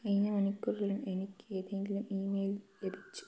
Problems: low volume